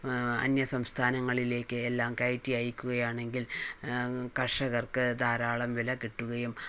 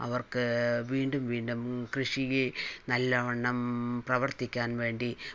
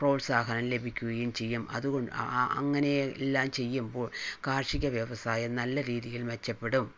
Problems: low volume